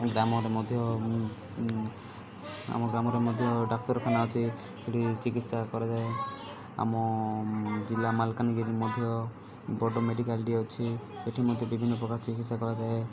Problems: constant background noise